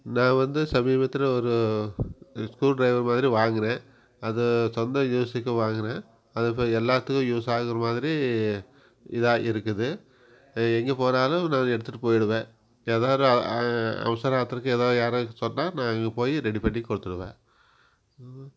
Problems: none marked